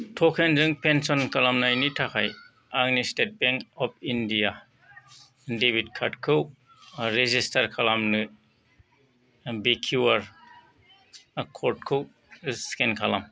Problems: none marked